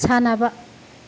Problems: constant background noise